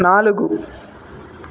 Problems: constant background noise